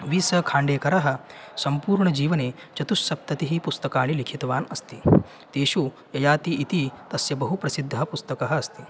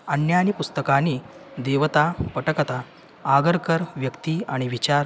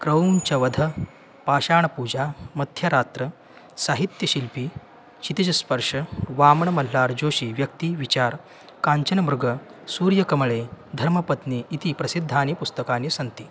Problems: constant background noise